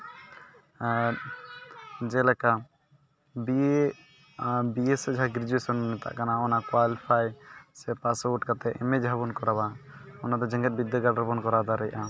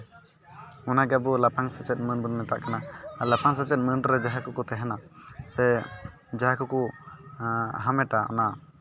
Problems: background sounds at intervals, continuous background conversations